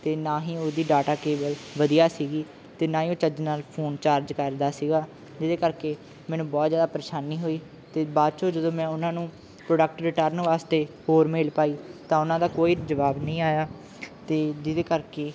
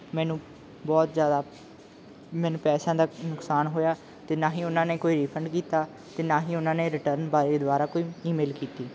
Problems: background sounds at intervals